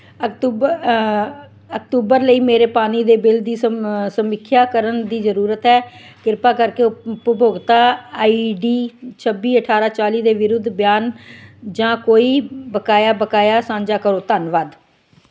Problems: none marked